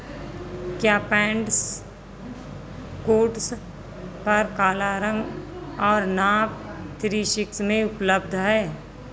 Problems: constant background noise